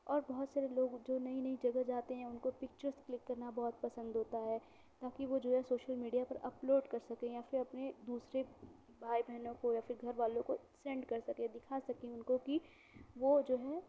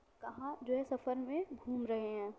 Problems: background sounds at intervals, low volume